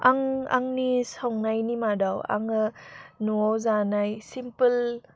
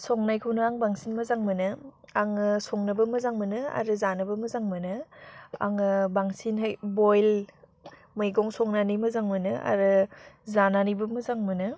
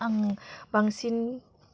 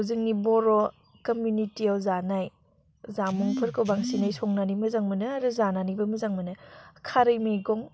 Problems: low volume